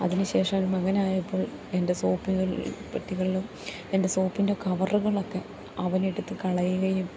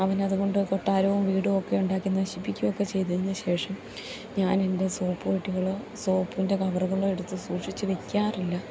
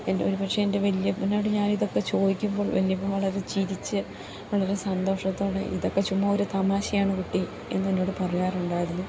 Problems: constant background noise